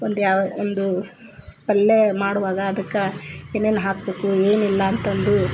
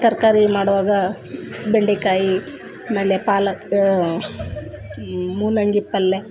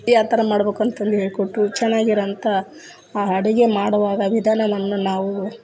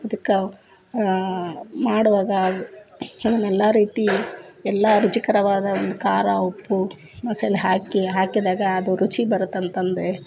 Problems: background sounds at intervals